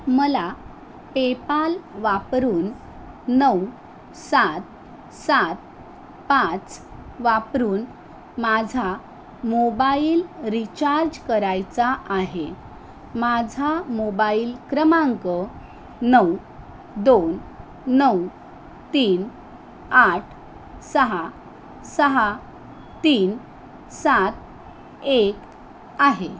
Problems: none marked